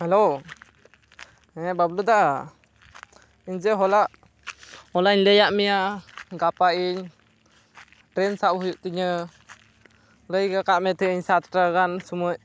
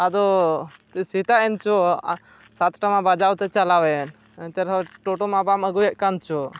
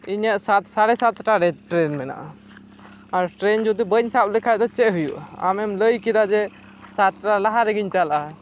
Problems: background sounds at intervals